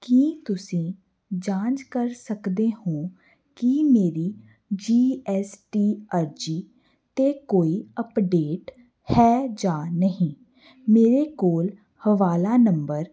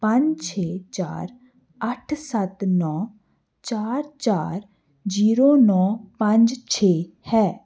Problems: none marked